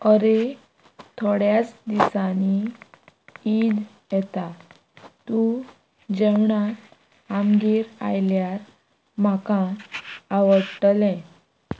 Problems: constant background noise